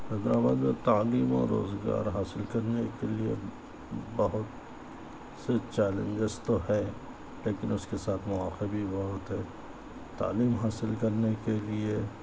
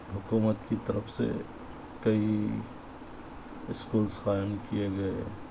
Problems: constant background noise, low volume